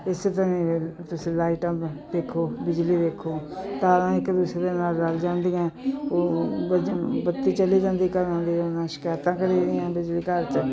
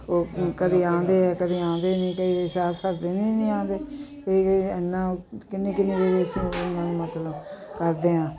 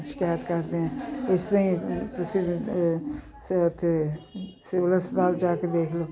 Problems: continuous background conversations